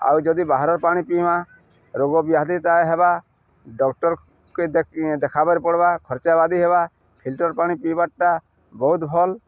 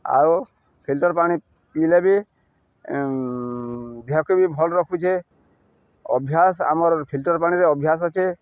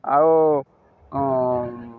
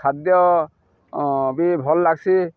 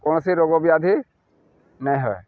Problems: none marked